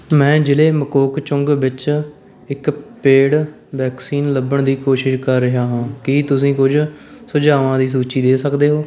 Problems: none marked